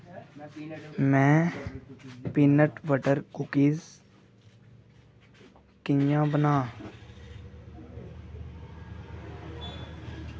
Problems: none marked